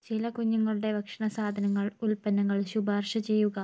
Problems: low volume